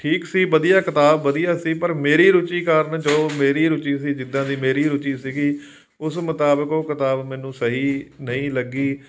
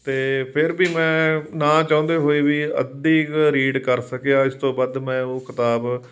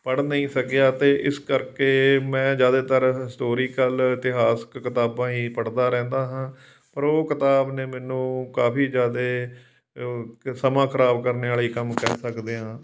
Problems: background sounds at intervals